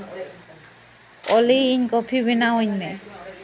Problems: background sounds at intervals, continuous background conversations